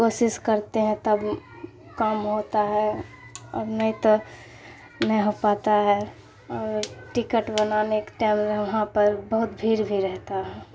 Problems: constant background noise